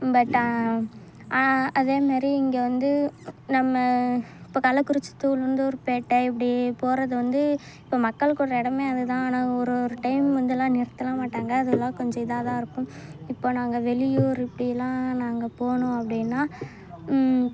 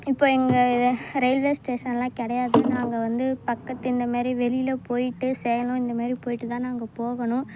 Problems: none marked